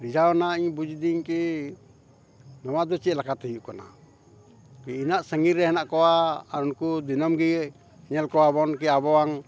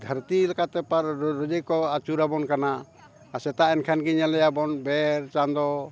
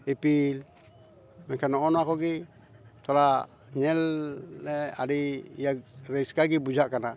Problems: background conversations at intervals